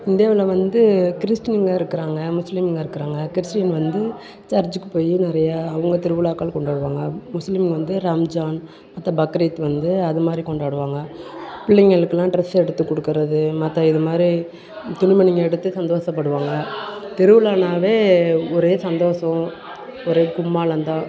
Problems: background conversations at intervals